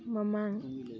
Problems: background conversations at intervals